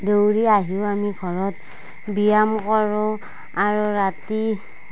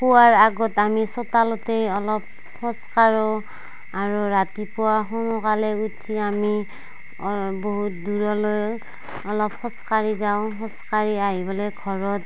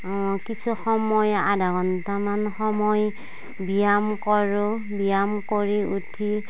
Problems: none marked